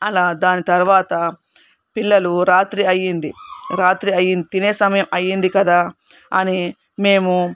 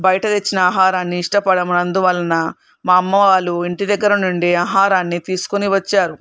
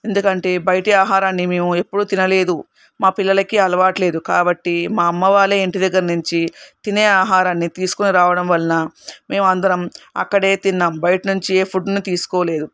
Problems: none marked